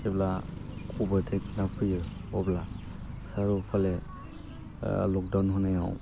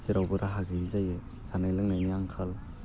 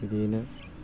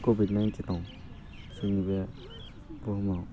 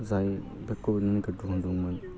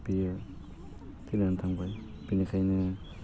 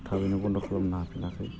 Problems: constant background noise